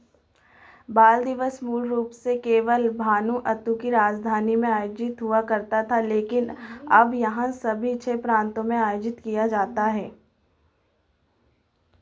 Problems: constant background noise